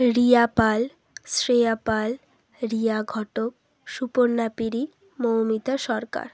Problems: constant background noise